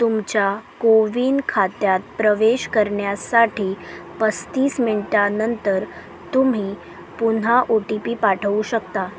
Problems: none marked